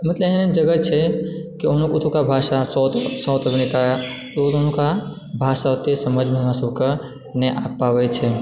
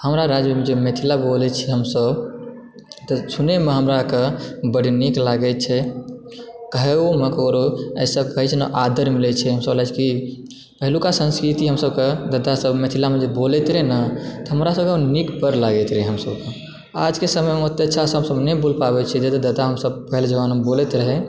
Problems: background sounds at intervals